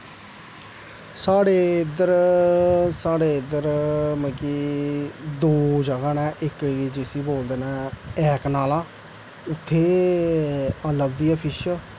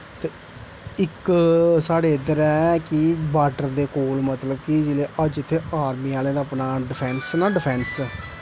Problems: constant background noise